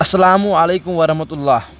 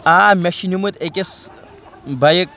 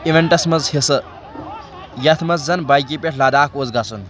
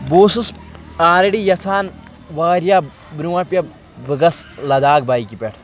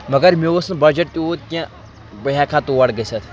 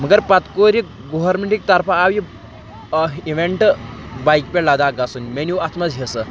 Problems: constant background noise